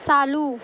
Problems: constant background noise